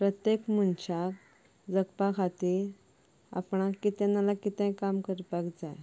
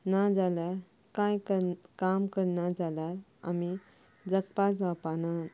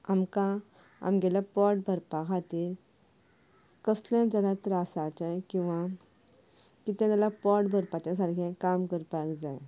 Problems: background sounds at intervals